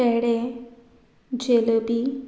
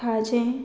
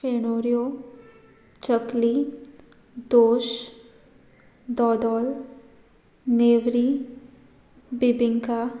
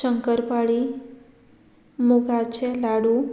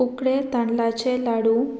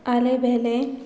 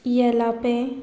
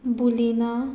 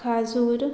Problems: background sounds at intervals